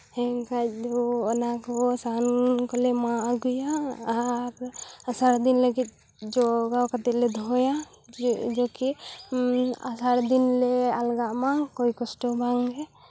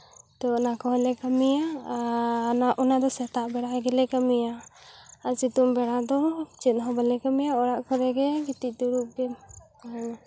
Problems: background conversations at intervals